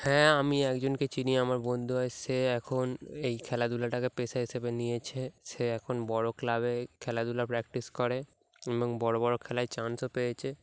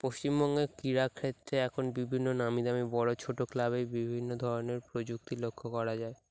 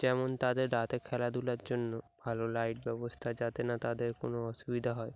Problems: none marked